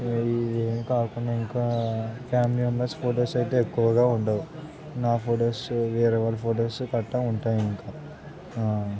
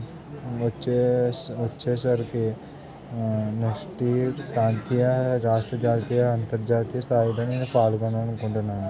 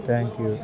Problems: none marked